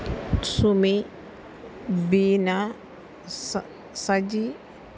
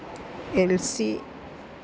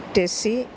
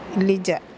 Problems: background sounds at intervals